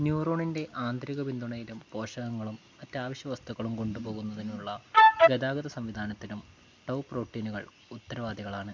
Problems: low volume